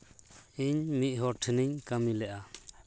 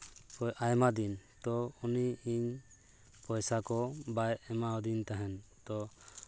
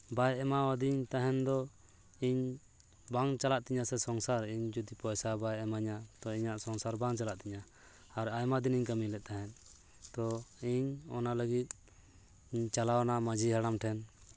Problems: constant background noise